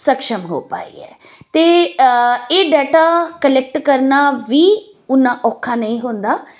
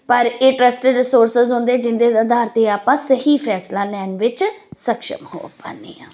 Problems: none marked